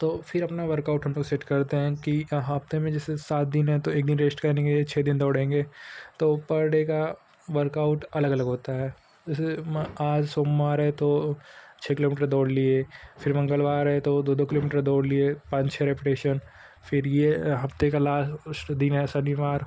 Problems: background sounds at intervals